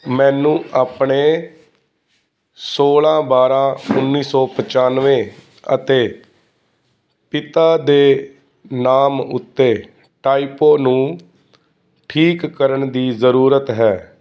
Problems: constant background noise